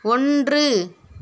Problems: none marked